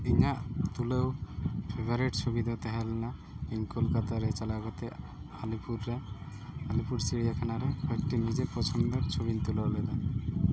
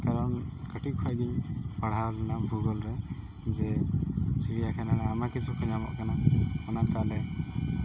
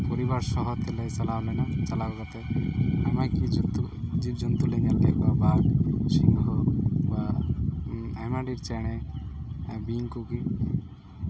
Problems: constant background noise